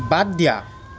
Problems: constant background noise